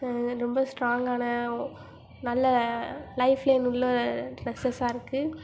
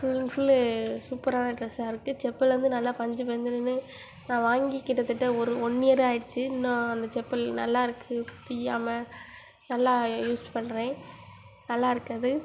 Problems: constant background noise